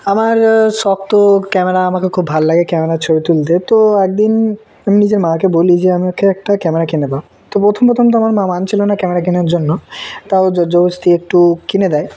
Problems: background sounds at intervals